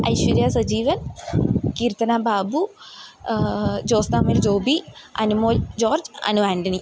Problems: none marked